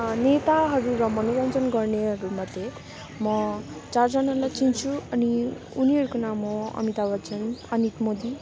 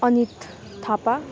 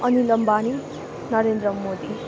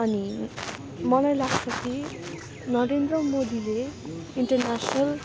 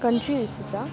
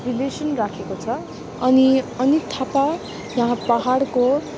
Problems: constant background noise